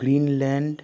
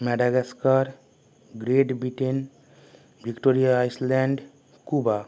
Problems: background sounds at intervals